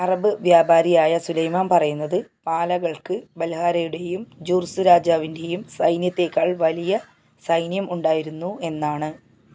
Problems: none marked